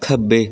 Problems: constant background noise